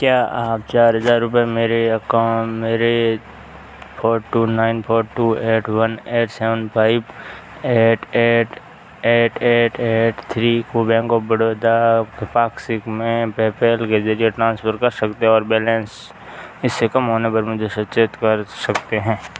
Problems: background sounds at intervals